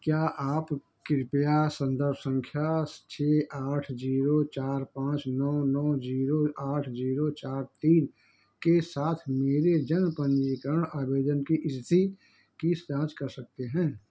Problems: none marked